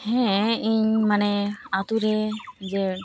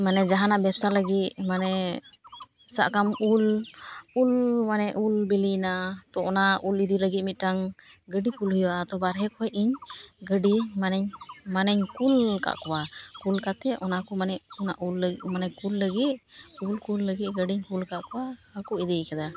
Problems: background sounds at intervals